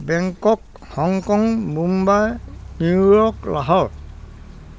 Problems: constant background noise, background conversations at intervals